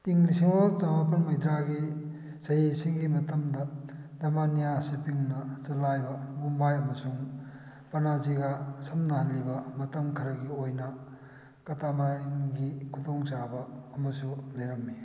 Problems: none marked